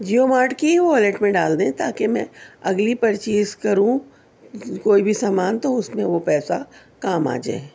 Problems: none marked